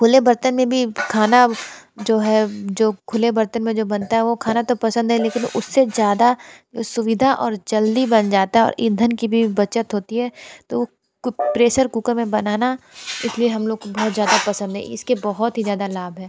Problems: background sounds at intervals